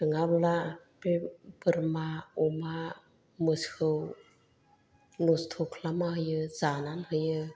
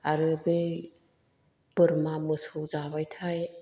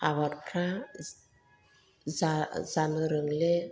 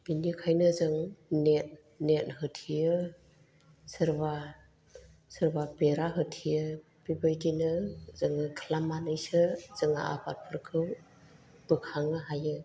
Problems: low volume